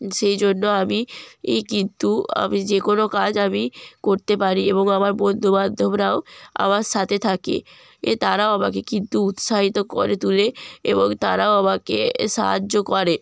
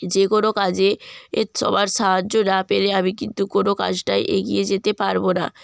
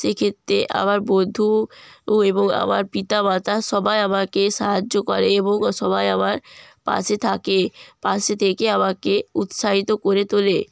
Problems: background sounds at intervals